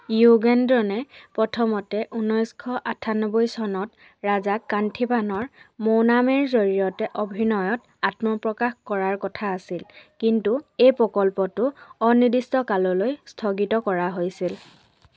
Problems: background conversations at intervals